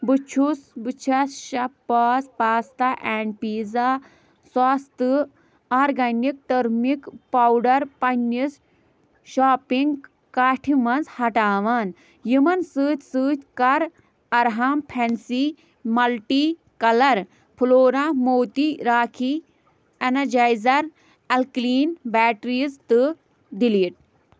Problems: none marked